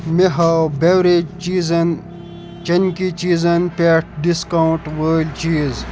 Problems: constant background noise